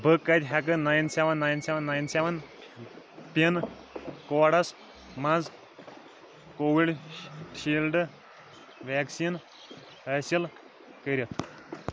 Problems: constant background noise, background conversations at intervals